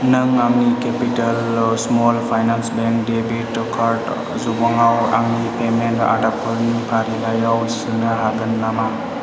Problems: none marked